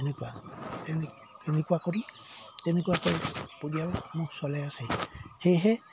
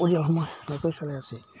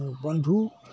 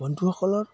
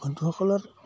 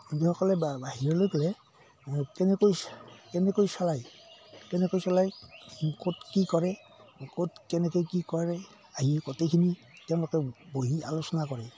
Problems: background sounds at intervals